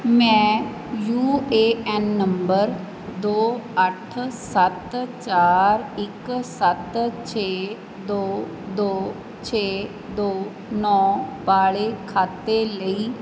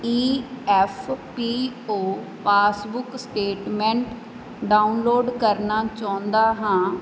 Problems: background sounds at intervals